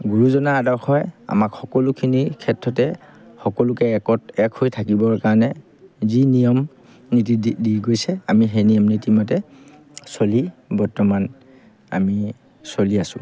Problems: background sounds at intervals